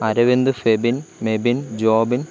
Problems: none marked